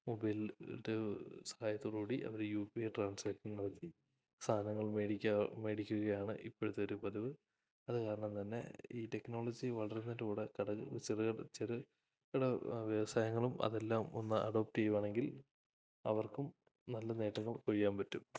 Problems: low volume